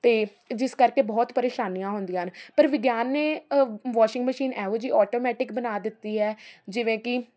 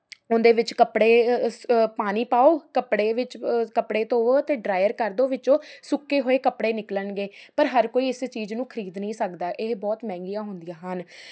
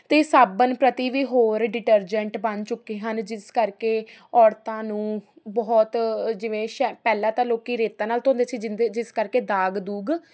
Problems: constant background noise